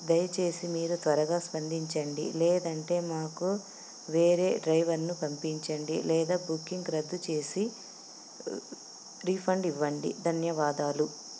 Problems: none marked